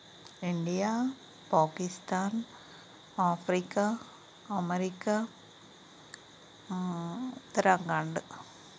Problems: constant background noise